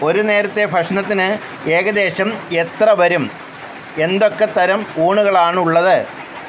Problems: constant background noise